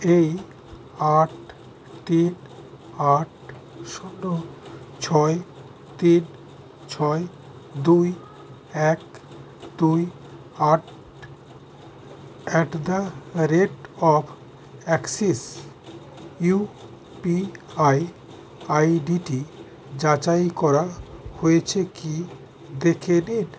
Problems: constant background noise